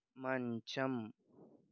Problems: none marked